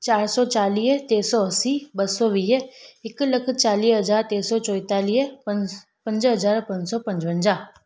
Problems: none marked